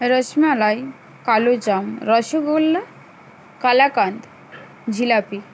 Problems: constant background noise